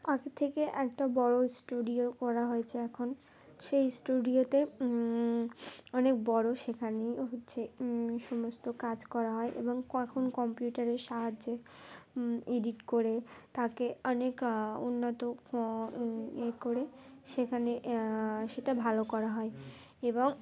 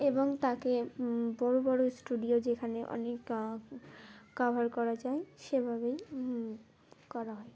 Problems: none marked